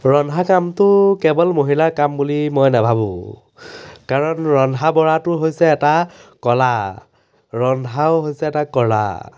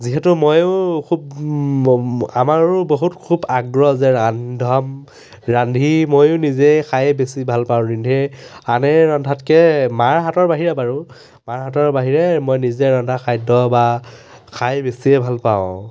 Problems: none marked